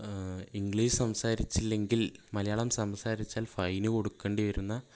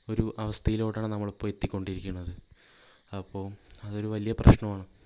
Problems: none marked